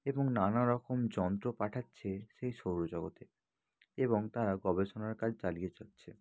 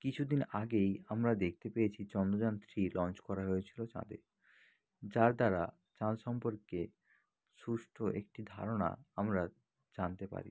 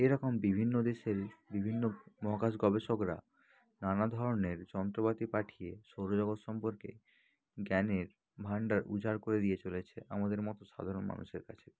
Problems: low volume